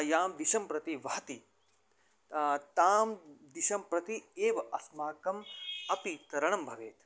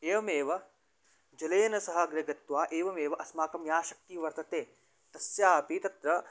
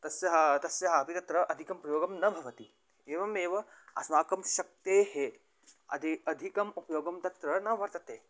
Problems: background sounds at intervals